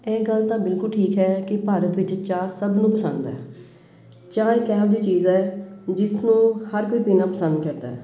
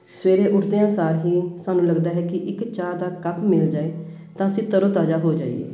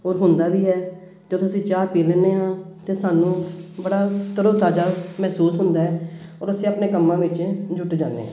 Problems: none marked